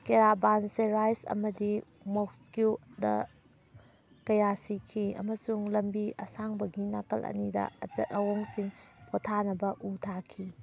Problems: background sounds at intervals